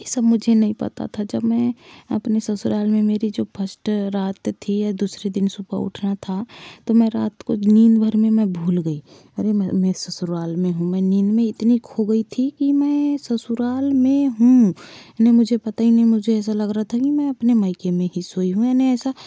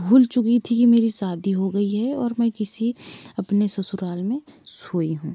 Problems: none marked